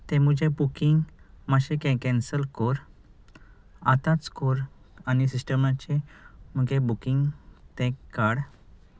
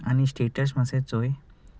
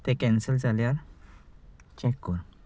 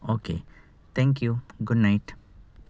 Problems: none marked